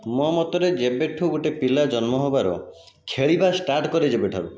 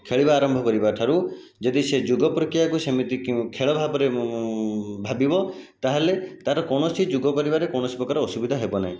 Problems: none marked